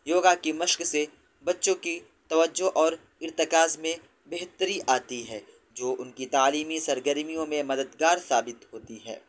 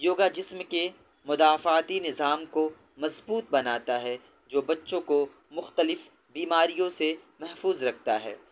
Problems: background sounds at intervals